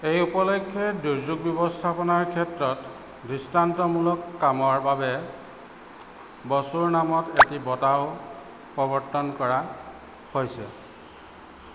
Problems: constant background noise